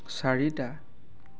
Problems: none marked